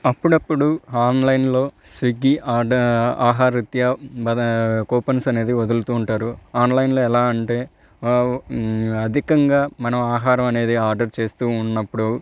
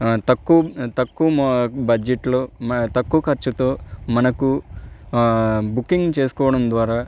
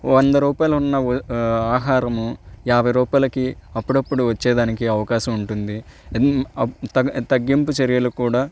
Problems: none marked